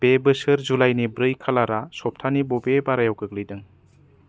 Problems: low volume